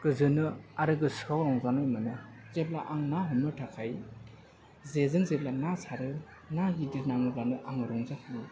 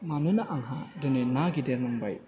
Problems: background conversations at intervals